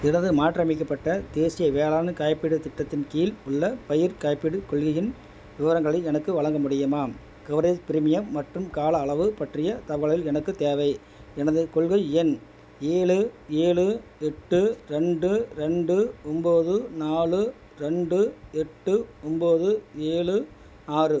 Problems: none marked